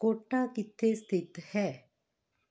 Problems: none marked